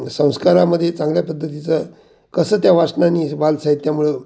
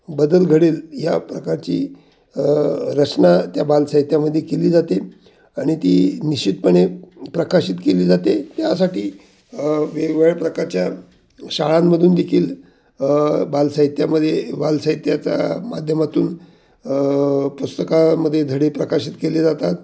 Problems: none marked